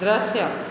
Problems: constant background noise, echo